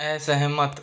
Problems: constant background noise